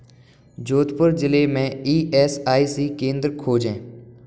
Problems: none marked